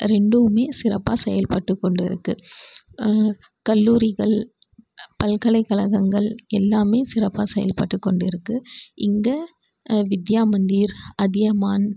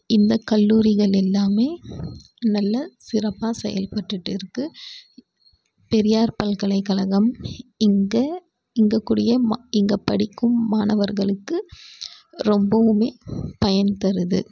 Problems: background sounds at intervals